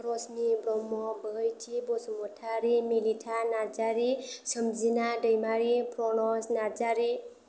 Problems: none marked